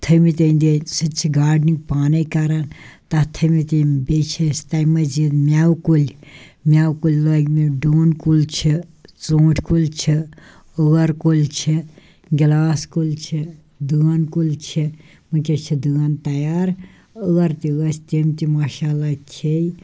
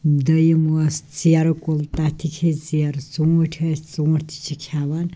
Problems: none marked